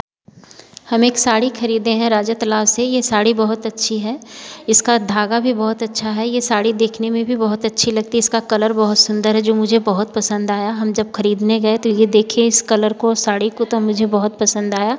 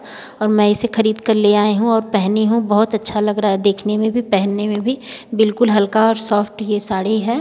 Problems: none marked